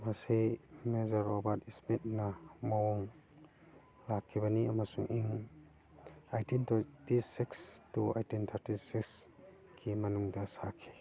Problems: background sounds at intervals, background conversations at intervals